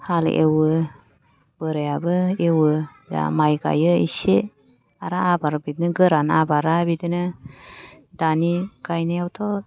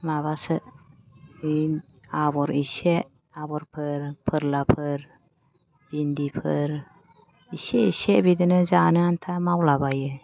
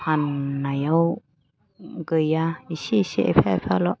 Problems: low volume